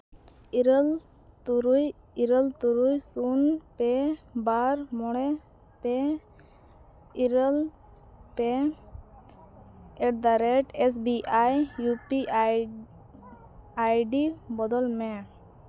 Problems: background sounds at intervals